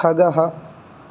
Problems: none marked